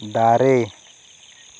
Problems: constant background noise